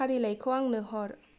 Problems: none marked